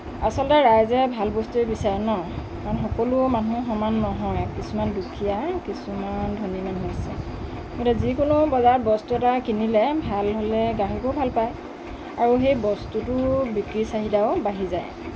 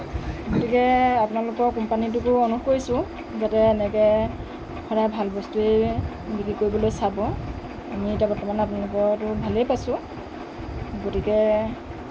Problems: constant background noise, low volume